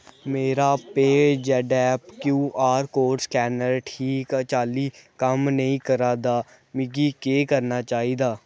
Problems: background sounds at intervals